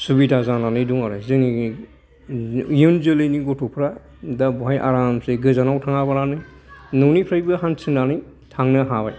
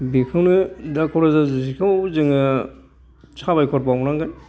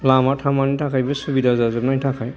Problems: background sounds at intervals